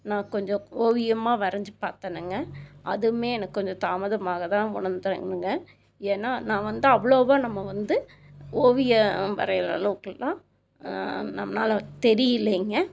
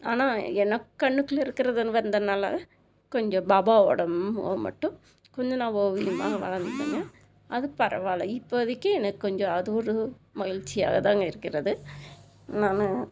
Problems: constant background noise